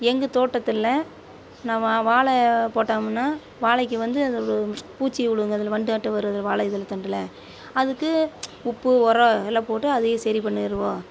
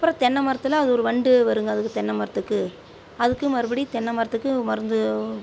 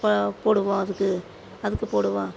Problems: none marked